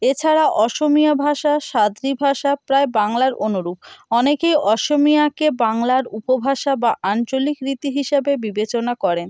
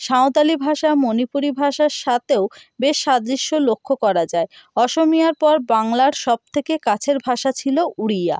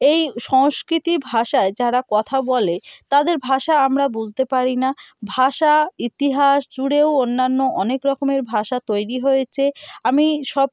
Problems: none marked